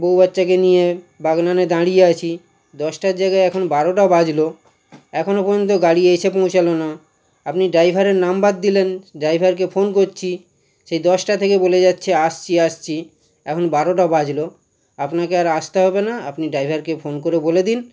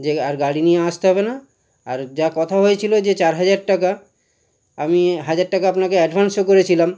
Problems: none marked